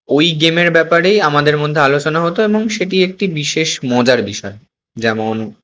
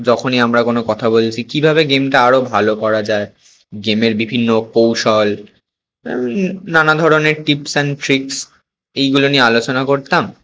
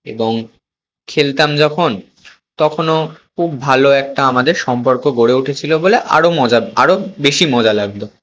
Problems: constant background noise